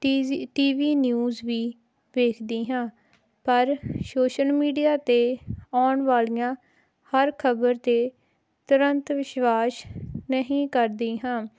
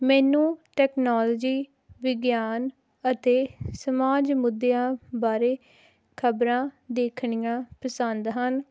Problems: none marked